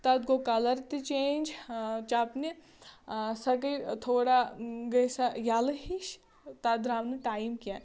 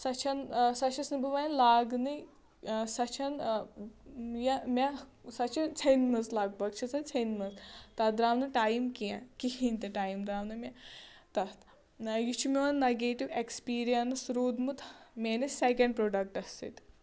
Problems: none marked